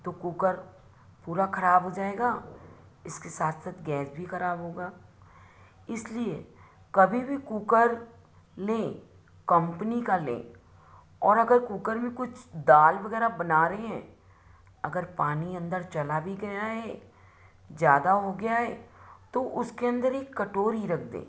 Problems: none marked